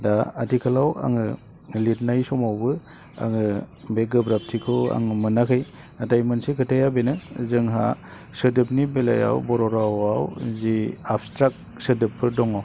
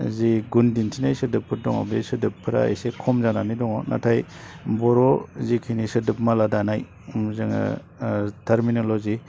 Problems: low volume